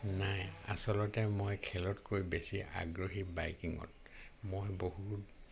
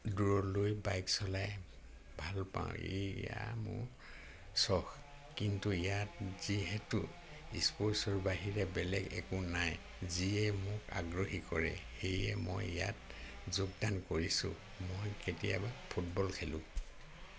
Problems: none marked